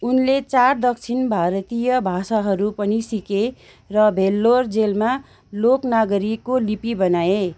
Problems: background sounds at intervals